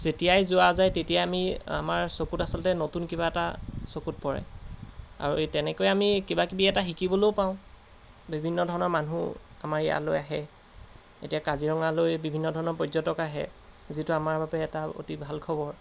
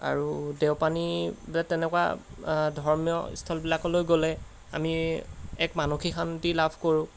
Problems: constant background noise